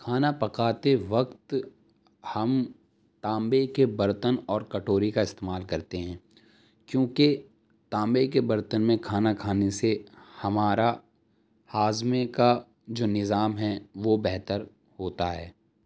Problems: none marked